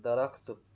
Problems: none marked